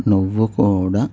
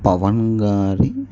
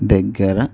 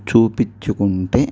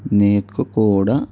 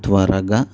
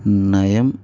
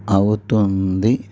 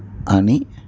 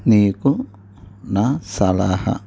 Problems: low volume